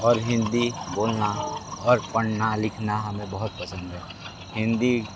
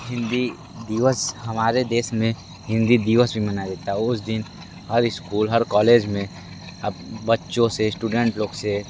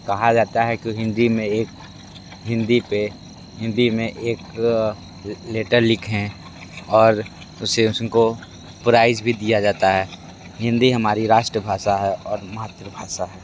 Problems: constant background noise